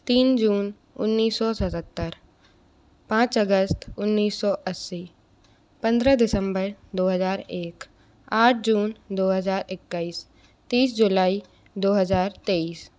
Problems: none marked